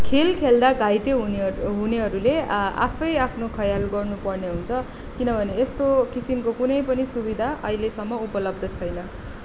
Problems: none marked